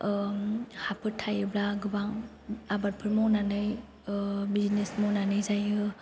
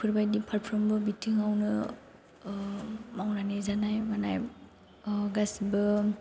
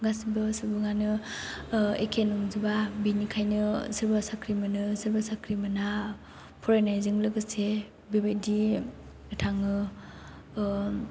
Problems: none marked